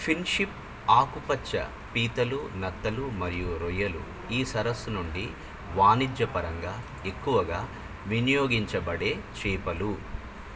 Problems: constant background noise